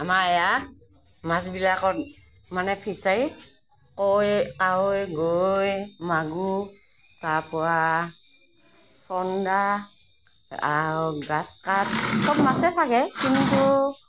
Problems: none marked